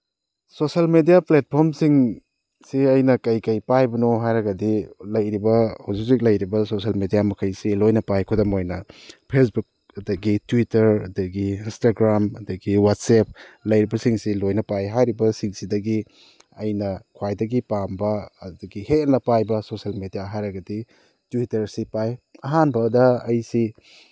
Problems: none marked